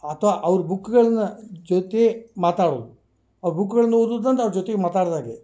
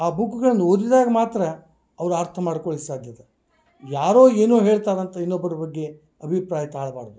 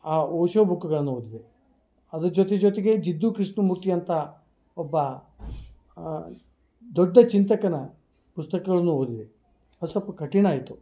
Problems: none marked